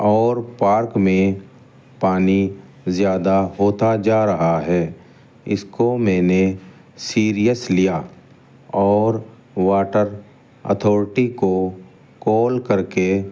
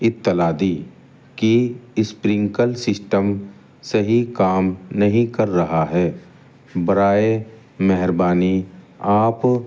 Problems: constant background noise